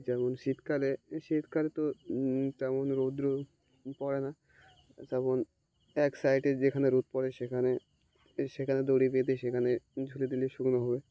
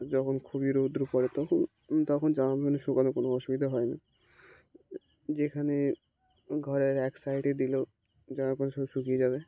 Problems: none marked